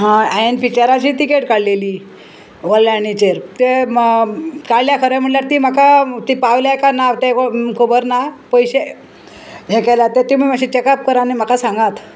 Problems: constant background noise